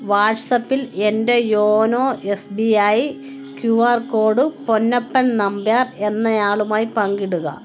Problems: constant background noise